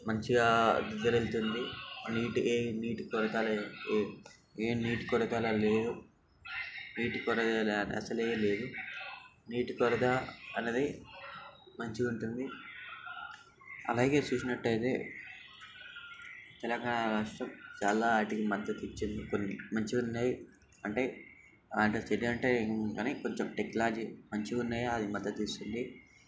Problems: constant background noise